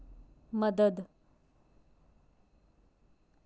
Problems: none marked